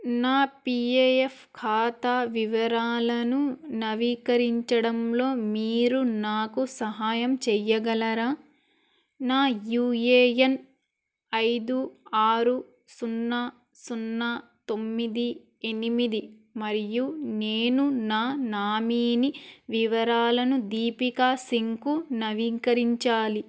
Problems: none marked